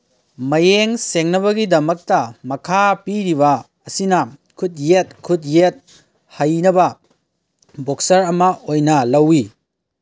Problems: none marked